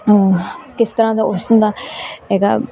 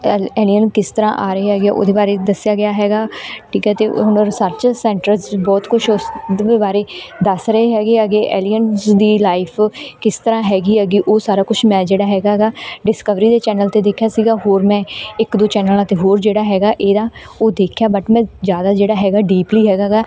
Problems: none marked